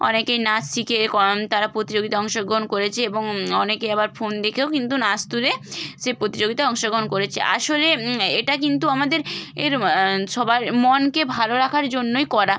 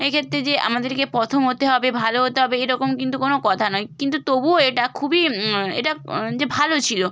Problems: none marked